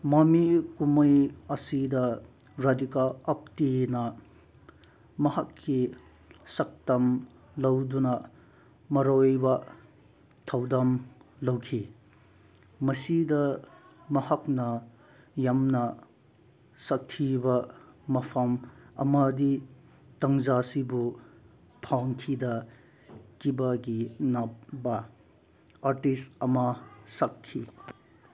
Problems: none marked